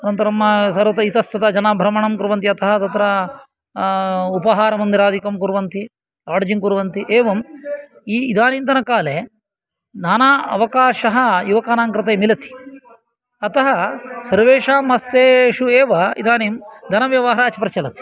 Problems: continuous background conversations